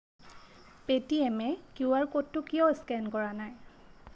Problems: none marked